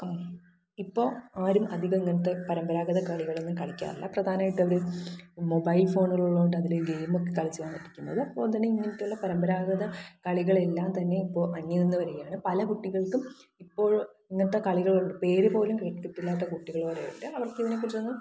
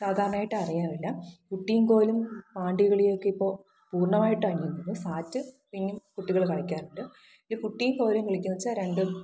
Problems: low volume